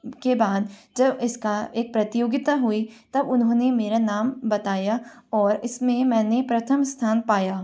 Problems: none marked